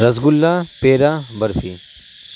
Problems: constant background noise